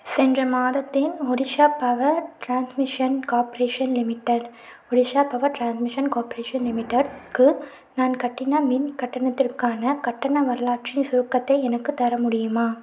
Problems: none marked